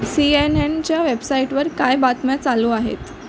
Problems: constant background noise